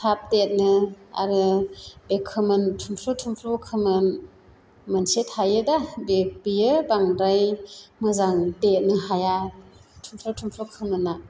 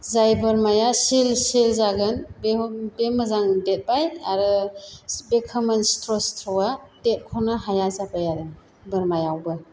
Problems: constant background noise